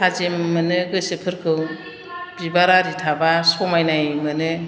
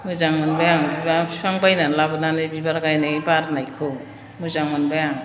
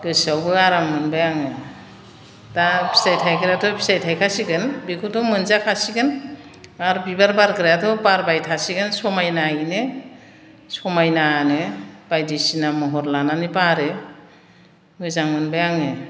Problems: none marked